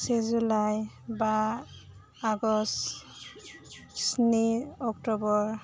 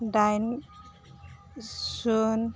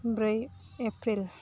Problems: constant background noise